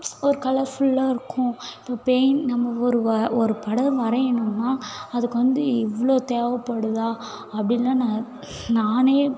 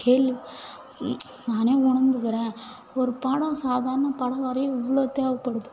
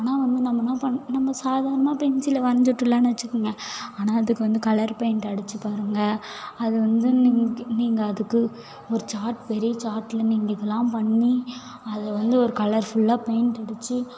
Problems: none marked